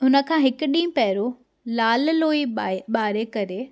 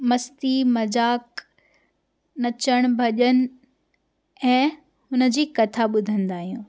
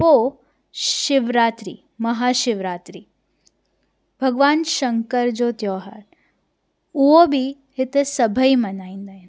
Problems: background sounds at intervals